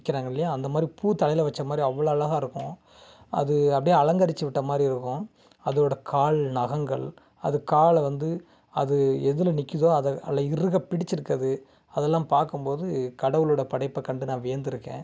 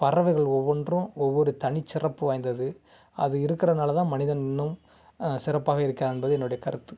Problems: background sounds at intervals